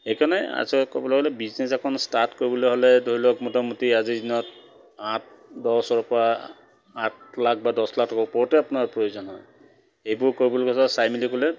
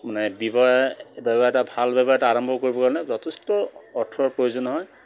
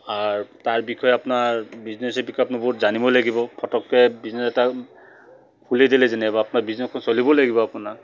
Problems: none marked